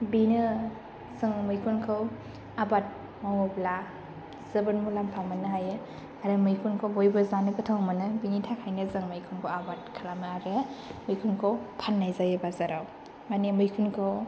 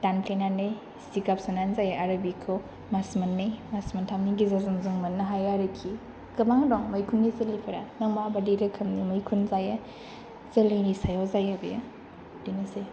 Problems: low volume